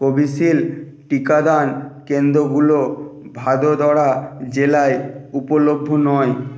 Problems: none marked